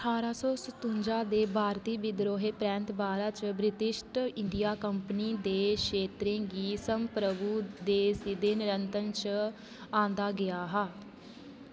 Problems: constant background noise